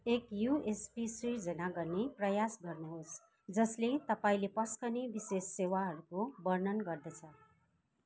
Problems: constant background noise